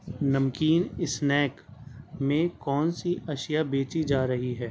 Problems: none marked